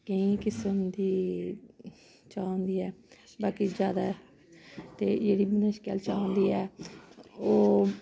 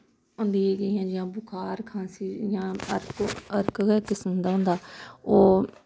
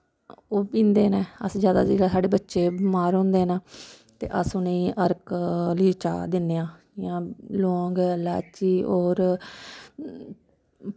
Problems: none marked